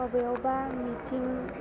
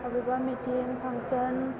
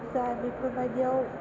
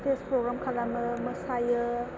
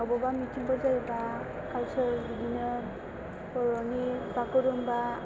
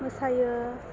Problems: constant background noise, low volume